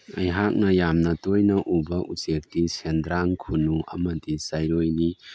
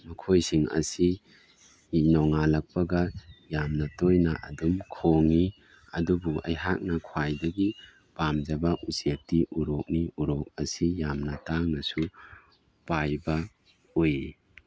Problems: background sounds at intervals